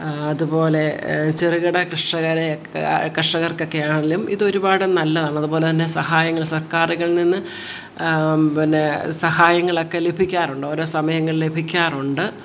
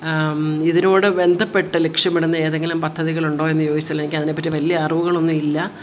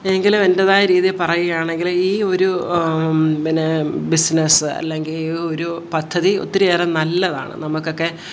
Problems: none marked